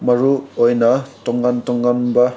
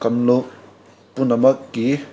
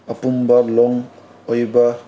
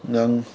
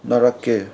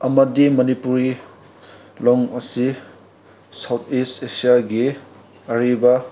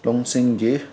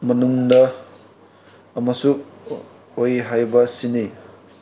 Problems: background sounds at intervals